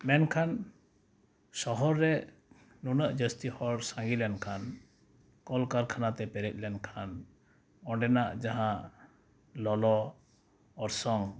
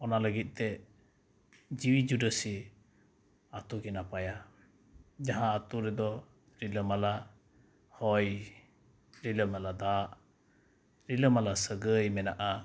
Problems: none marked